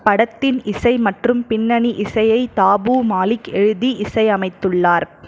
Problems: none marked